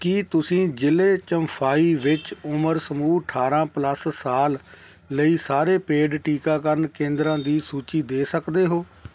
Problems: constant background noise